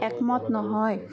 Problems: constant background noise, continuous background conversations